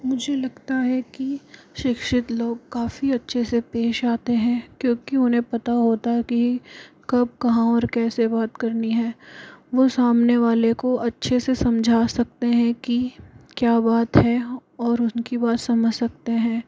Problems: constant background noise